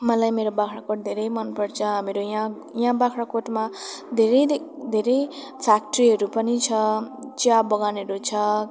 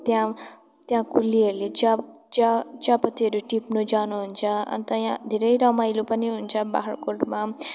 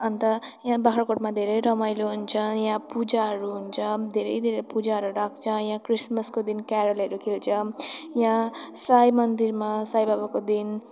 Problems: none marked